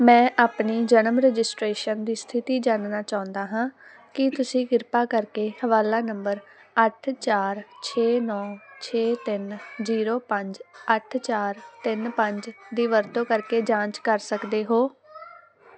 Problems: constant background noise